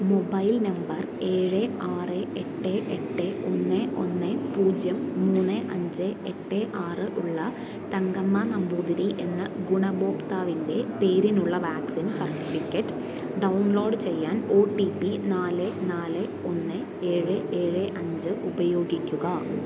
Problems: constant background noise